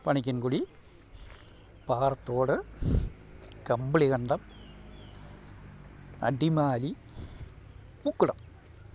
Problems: low volume